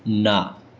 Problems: constant background noise